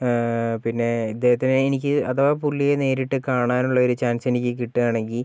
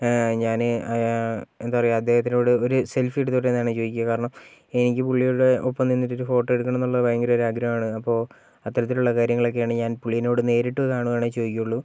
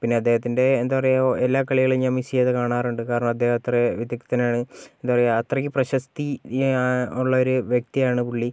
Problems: none marked